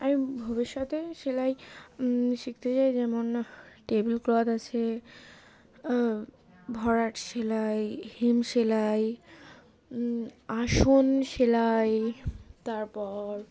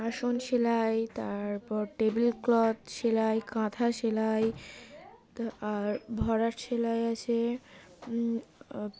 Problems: constant background noise, background conversations at intervals